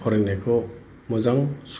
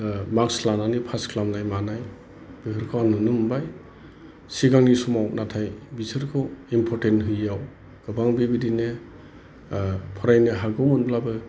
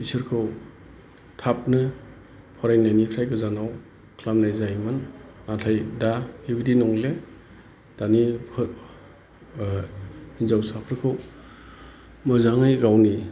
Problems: none marked